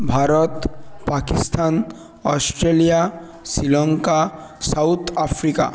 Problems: none marked